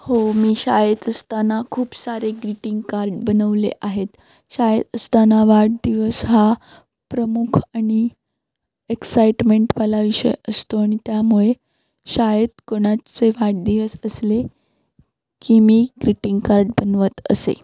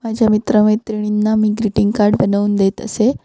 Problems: constant background noise